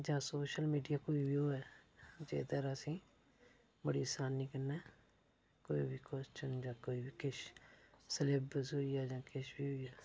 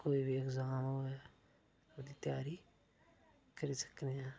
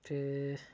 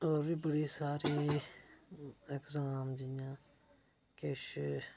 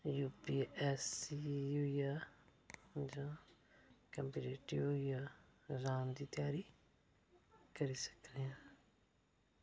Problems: none marked